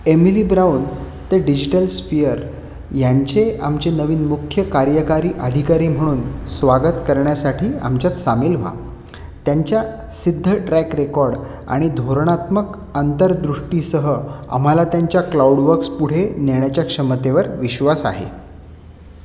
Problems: constant background noise, echo